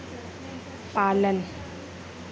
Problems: constant background noise, low volume